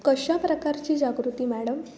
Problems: background sounds at intervals